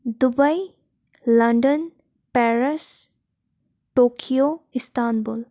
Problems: none marked